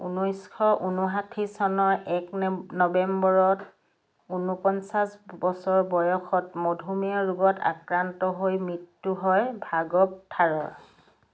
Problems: none marked